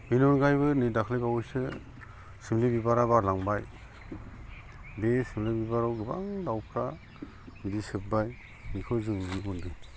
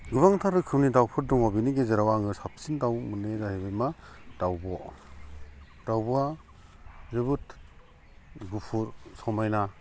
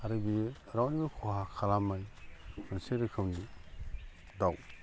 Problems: constant background noise